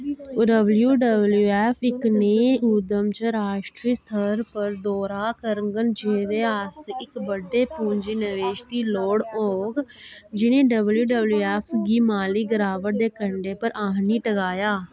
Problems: background sounds at intervals